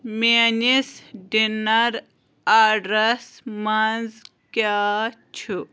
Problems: constant background noise